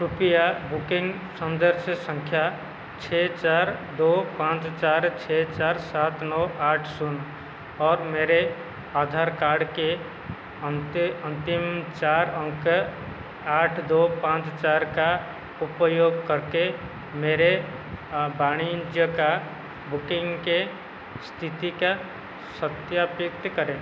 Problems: constant background noise